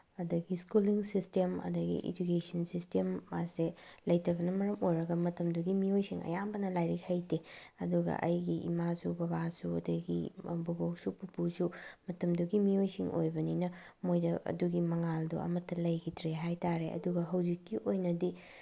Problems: background sounds at intervals